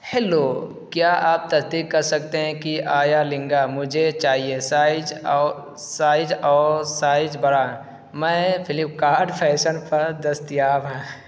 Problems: constant background noise